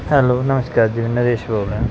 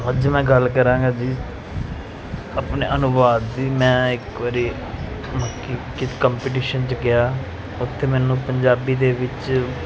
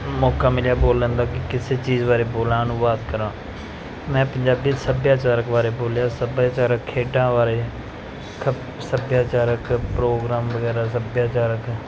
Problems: none marked